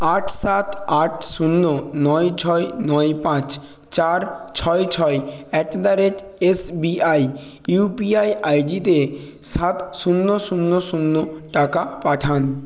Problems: background sounds at intervals